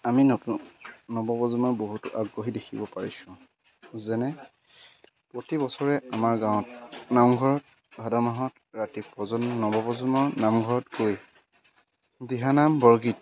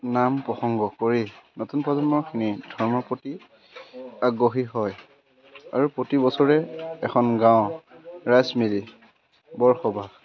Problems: constant background noise